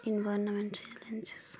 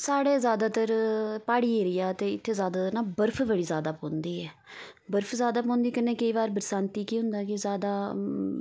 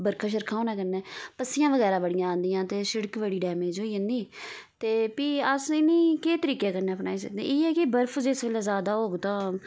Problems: background sounds at intervals